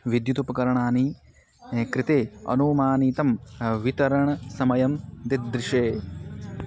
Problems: constant background noise